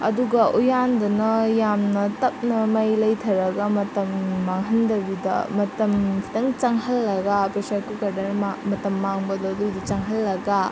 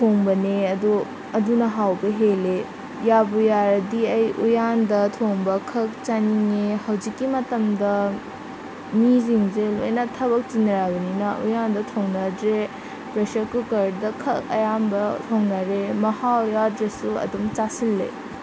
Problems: constant background noise